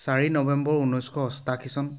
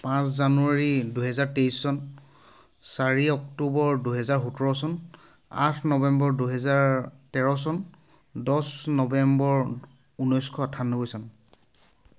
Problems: none marked